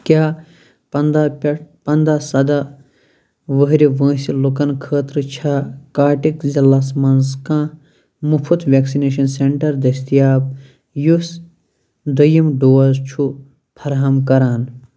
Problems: constant background noise